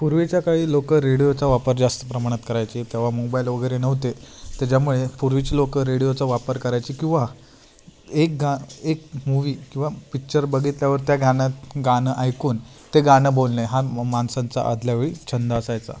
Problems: constant background noise